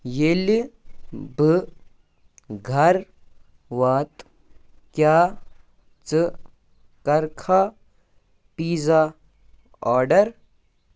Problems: none marked